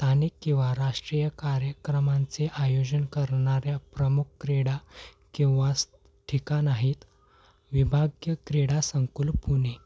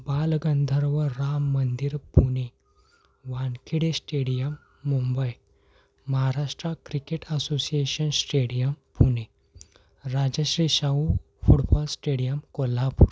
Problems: none marked